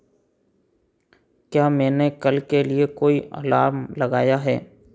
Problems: background sounds at intervals